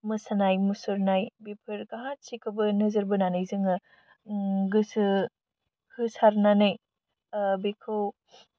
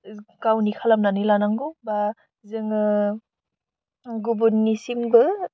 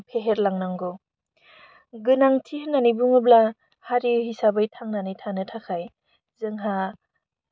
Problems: none marked